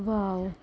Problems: none marked